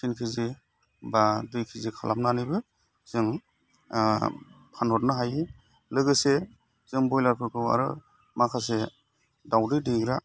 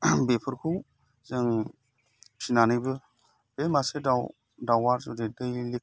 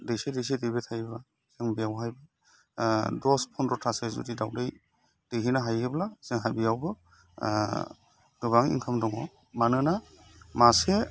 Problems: constant background noise